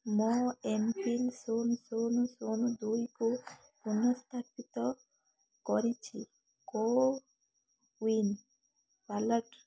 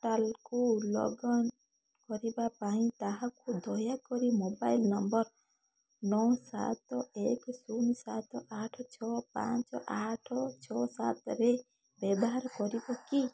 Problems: background sounds at intervals